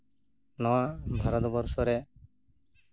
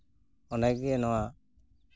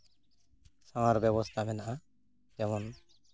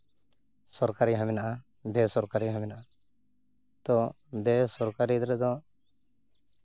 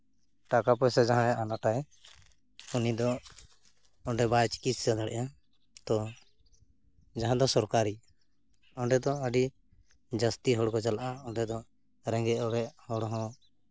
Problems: constant background noise